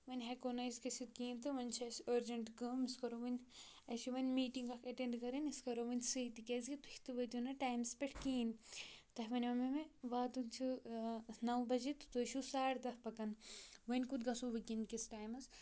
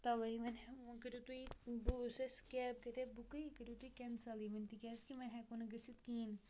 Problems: none marked